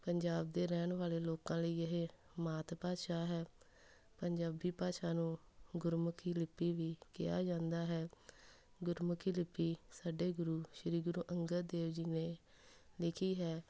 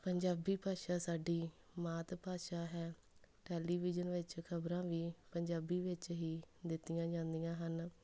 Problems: none marked